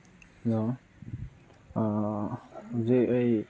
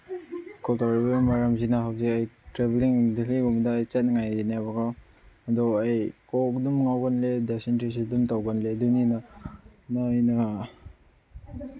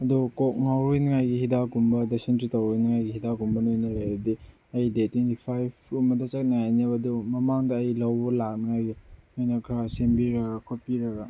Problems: background sounds at intervals, low volume